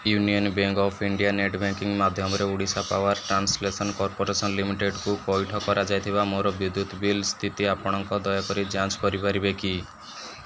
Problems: constant background noise